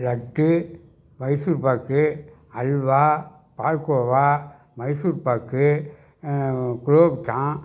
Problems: none marked